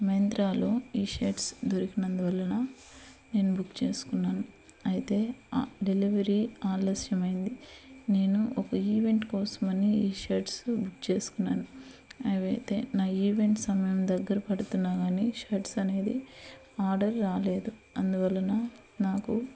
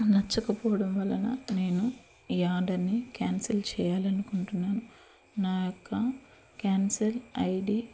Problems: constant background noise